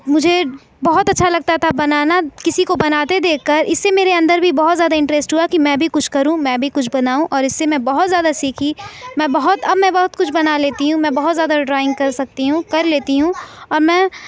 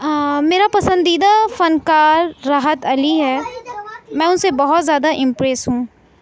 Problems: background conversations at intervals